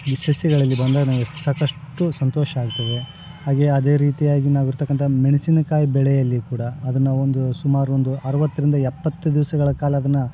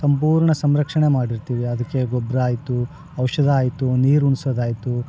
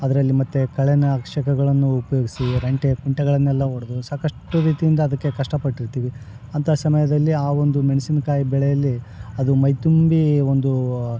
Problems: background sounds at intervals